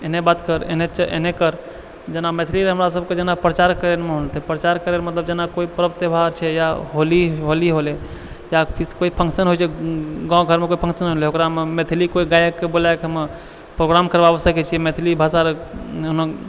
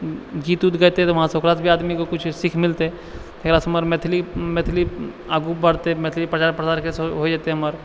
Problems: none marked